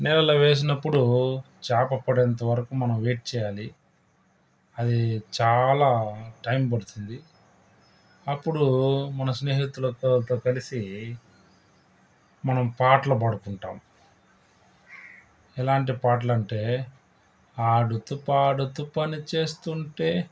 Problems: background sounds at intervals